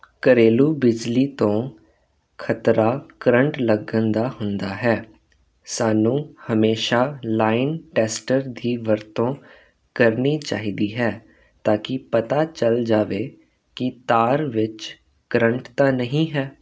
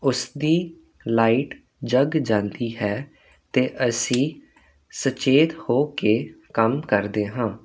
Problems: none marked